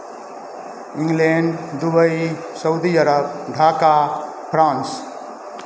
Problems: constant background noise